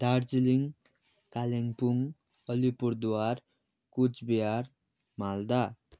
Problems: none marked